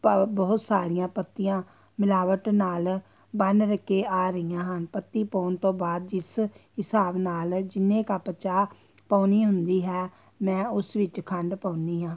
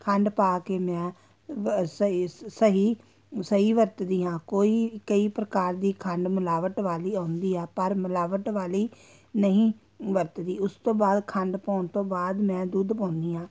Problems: constant background noise